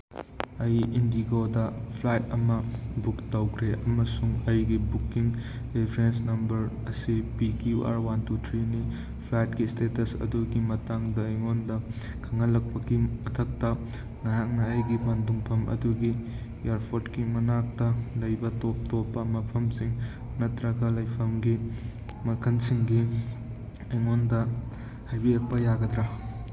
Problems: background sounds at intervals